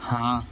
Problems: constant background noise